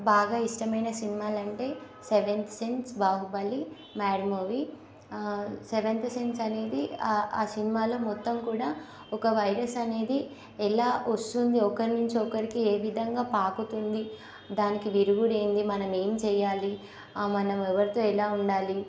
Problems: constant background noise